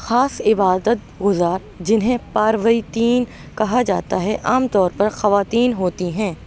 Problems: none marked